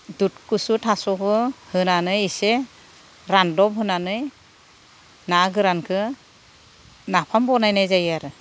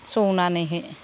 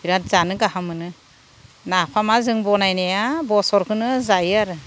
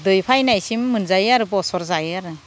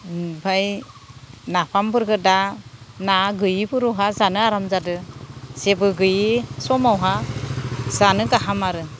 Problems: none marked